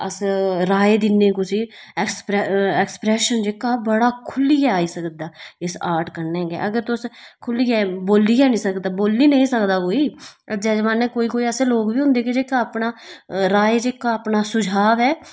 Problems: constant background noise